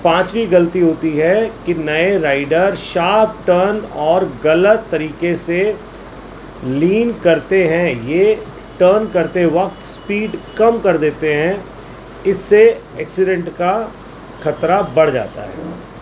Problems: constant background noise